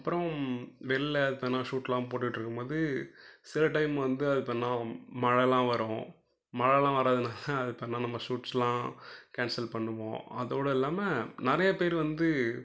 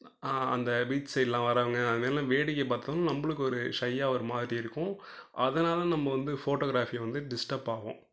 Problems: low volume